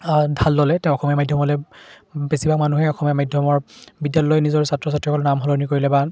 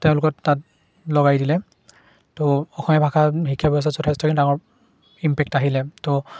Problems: constant background noise, background conversations at intervals